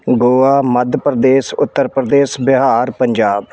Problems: background sounds at intervals